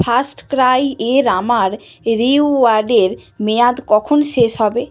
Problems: none marked